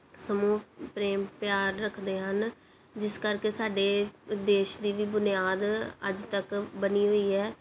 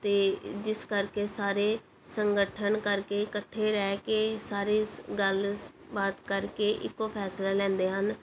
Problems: none marked